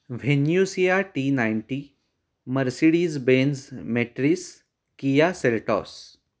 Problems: none marked